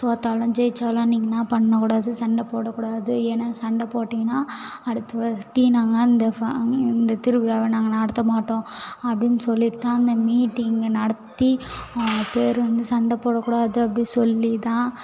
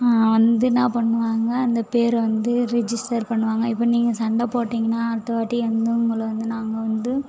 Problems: background sounds at intervals